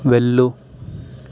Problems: constant background noise